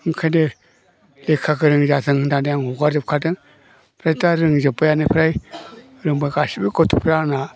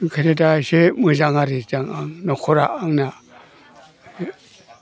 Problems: low volume